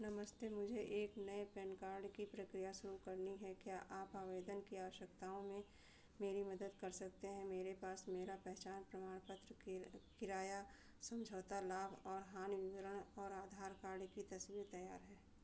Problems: none marked